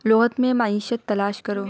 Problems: background conversations at intervals